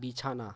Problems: none marked